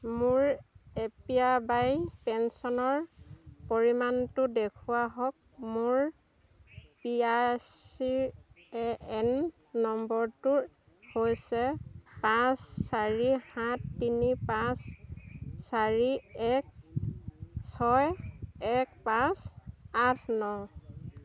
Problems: constant background noise, continuous background conversations